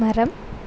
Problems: none marked